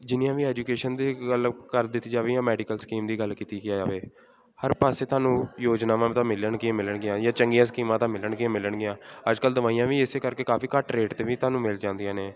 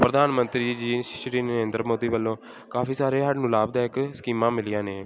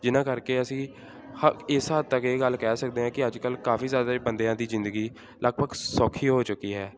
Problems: constant background noise